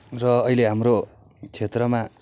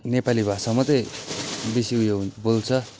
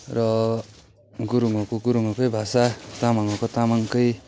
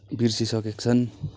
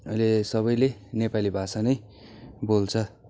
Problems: none marked